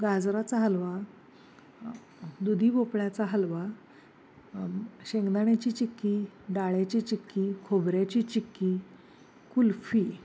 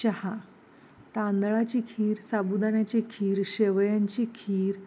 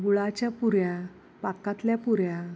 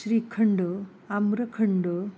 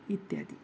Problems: constant background noise